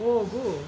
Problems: constant background noise